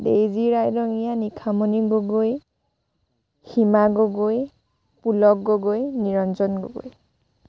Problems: background sounds at intervals